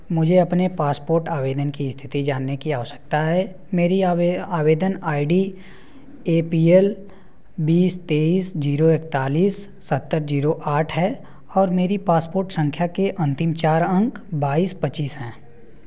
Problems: background sounds at intervals